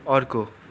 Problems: none marked